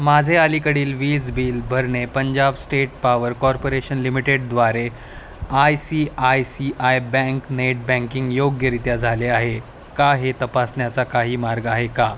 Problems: none marked